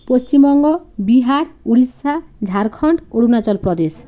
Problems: background sounds at intervals